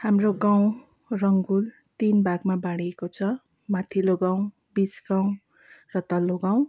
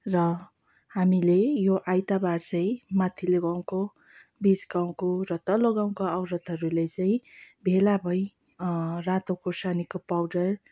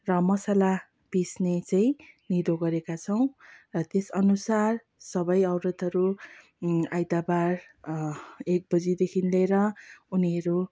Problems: background sounds at intervals